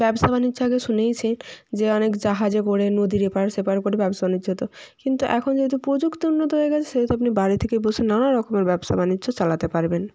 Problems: constant background noise